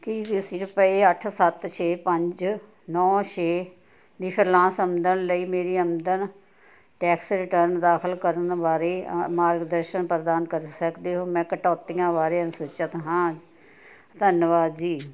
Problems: continuous background conversations